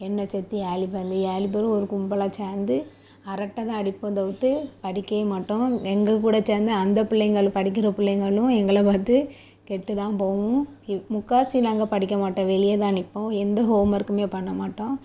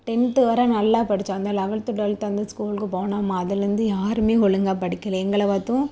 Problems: constant background noise